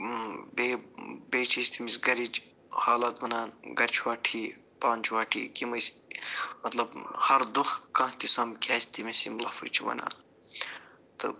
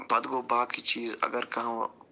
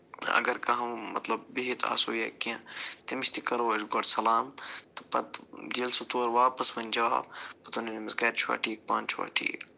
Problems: low volume